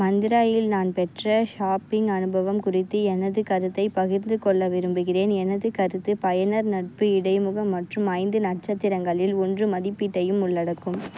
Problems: none marked